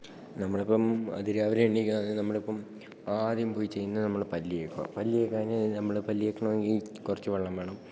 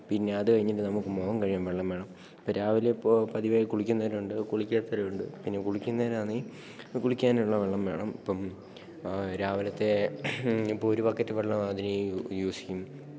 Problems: low volume